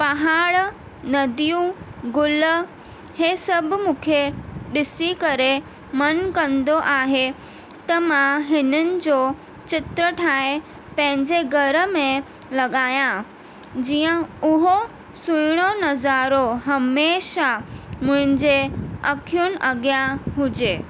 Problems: constant background noise